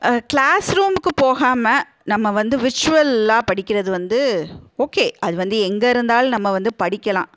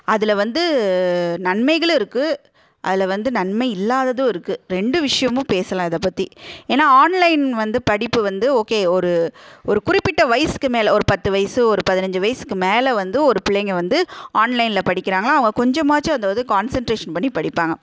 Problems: none marked